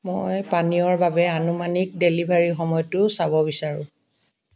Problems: none marked